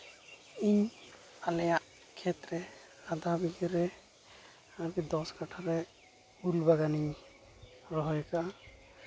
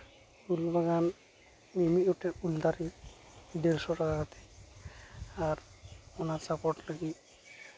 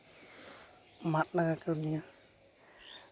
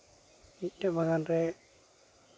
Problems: constant background noise